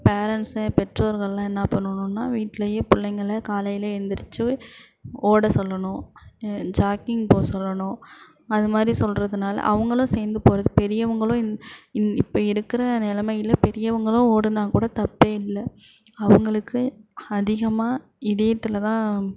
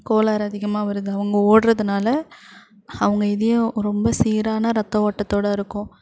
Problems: none marked